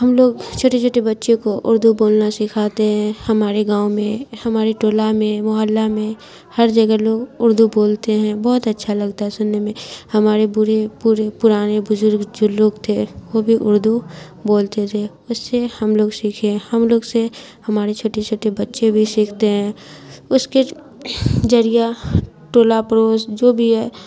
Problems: constant background noise